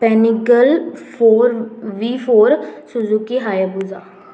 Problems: constant background noise